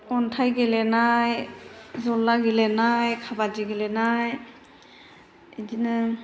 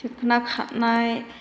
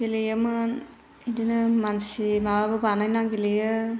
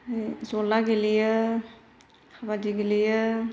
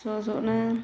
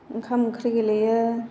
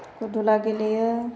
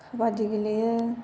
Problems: constant background noise